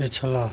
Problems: none marked